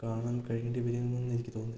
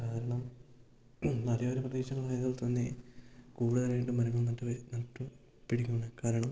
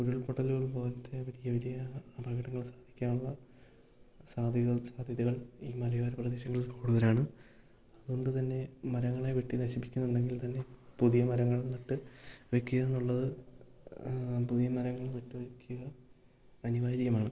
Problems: low volume